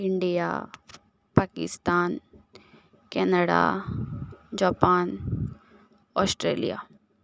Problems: none marked